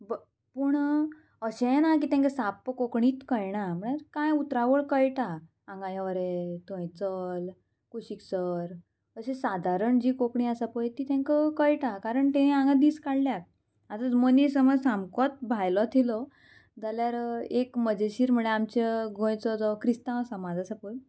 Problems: constant background noise